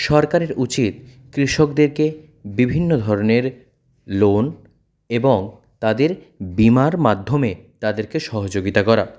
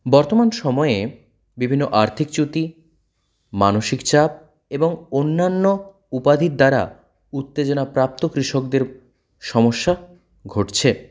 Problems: none marked